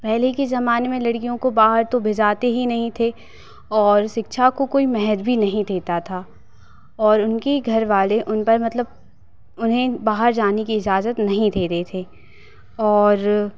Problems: constant background noise